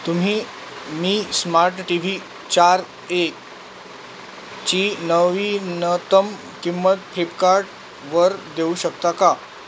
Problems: constant background noise